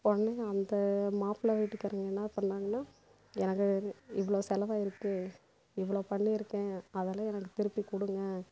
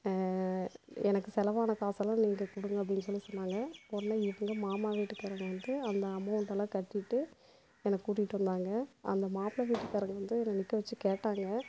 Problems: constant background noise, low volume